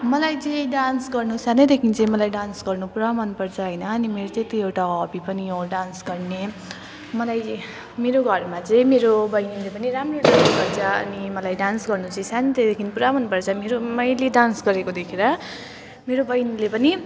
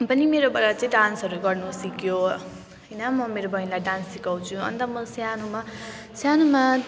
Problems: constant background noise